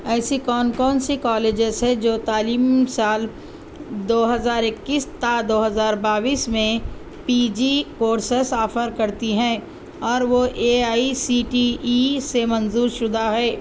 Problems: constant background noise